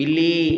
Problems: none marked